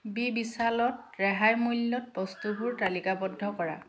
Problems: background conversations at intervals